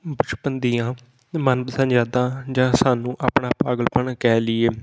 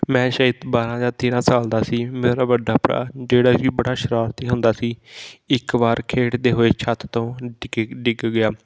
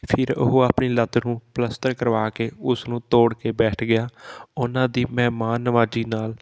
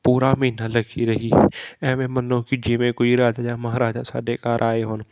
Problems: none marked